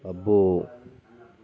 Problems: none marked